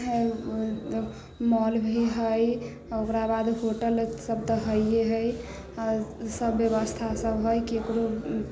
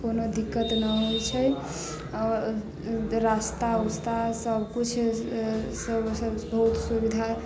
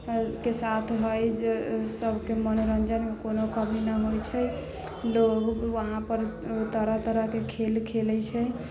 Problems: low volume